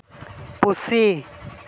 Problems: none marked